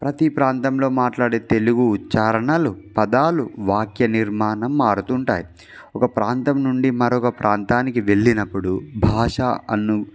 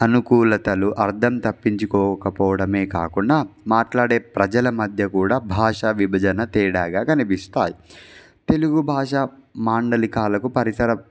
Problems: background sounds at intervals